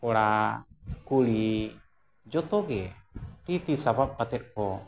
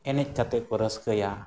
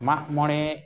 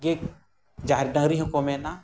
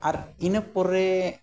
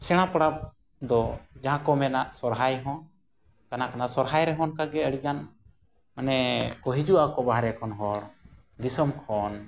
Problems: background sounds at intervals